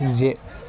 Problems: constant background noise